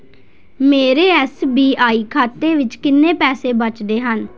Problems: none marked